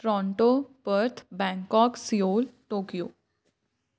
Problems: none marked